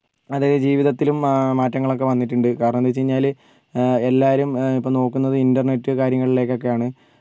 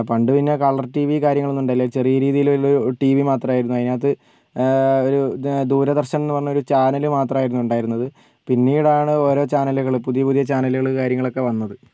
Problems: none marked